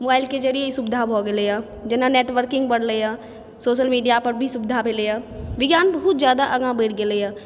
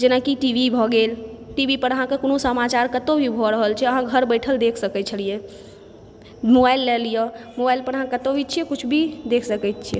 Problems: background sounds at intervals